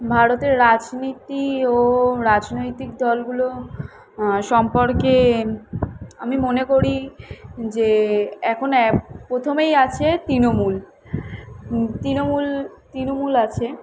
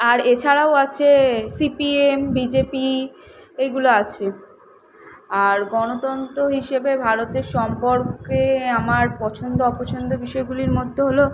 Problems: none marked